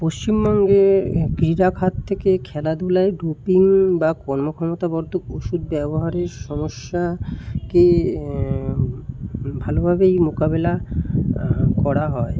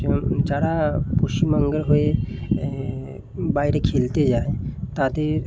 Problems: constant background noise